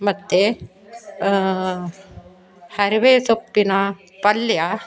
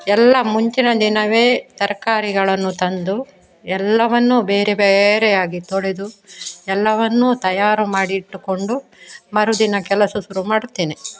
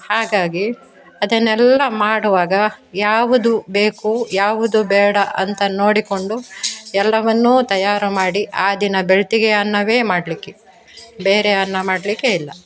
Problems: none marked